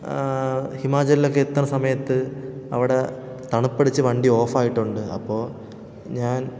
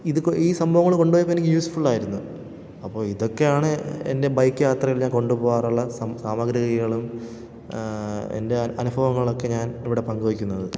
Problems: none marked